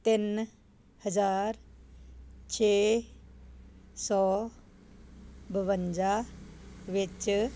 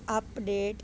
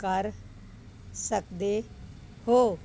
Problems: constant background noise